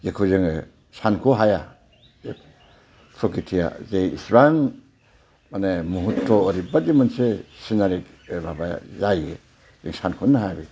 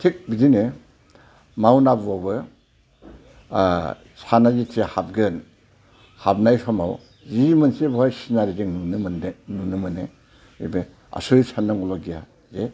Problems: low volume